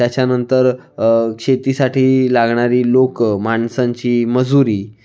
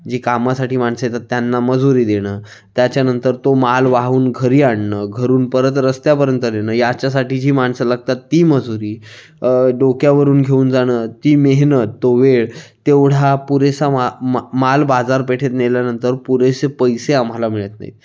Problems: background sounds at intervals, background conversations at intervals